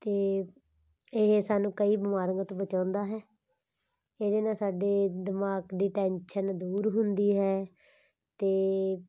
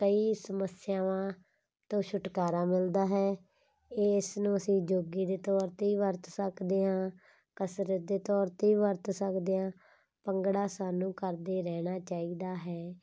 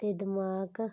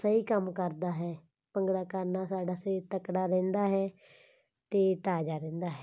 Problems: background sounds at intervals